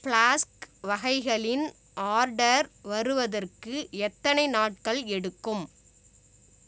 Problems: none marked